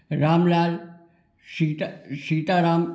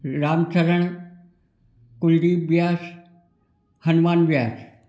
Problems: none marked